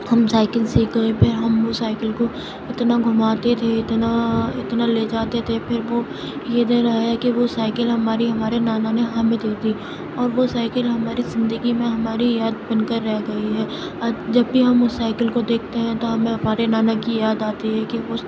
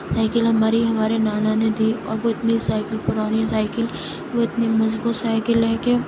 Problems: constant background noise, low volume